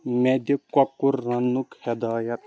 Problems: constant background noise